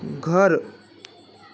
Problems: constant background noise, background conversations at intervals